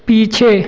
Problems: constant background noise, echo